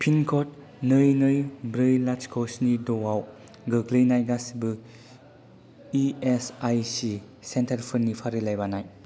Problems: low volume